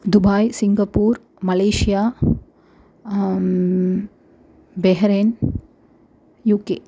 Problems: background sounds at intervals